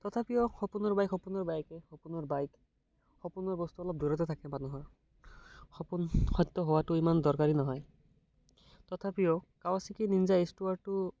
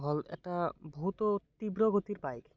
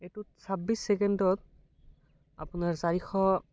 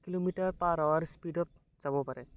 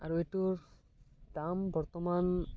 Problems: none marked